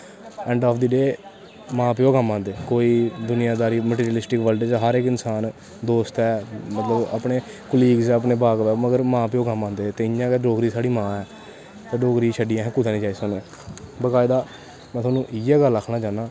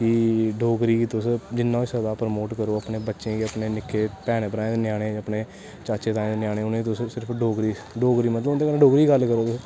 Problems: constant background noise